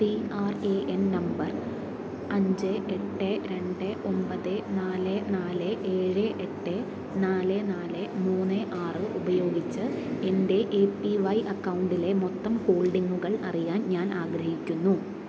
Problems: constant background noise